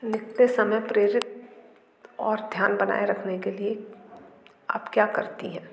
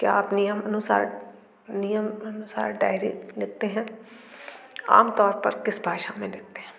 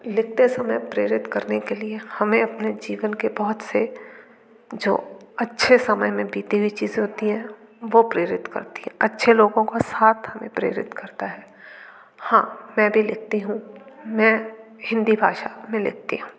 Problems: none marked